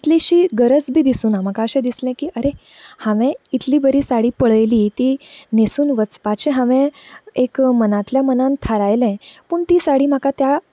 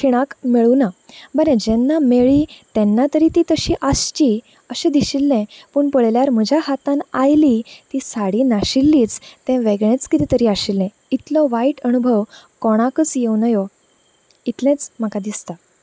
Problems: none marked